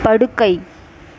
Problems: background sounds at intervals